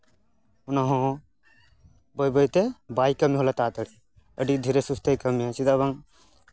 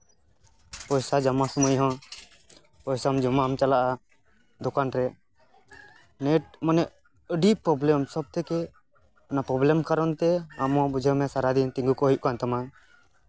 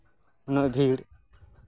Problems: background sounds at intervals